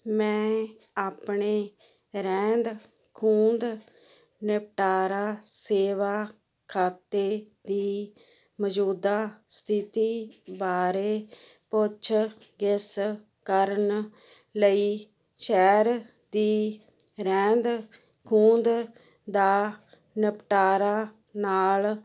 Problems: none marked